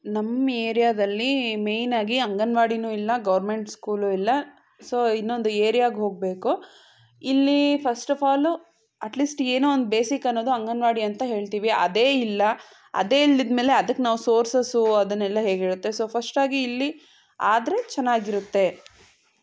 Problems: background sounds at intervals